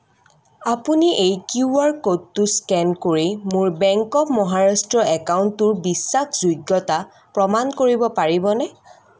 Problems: constant background noise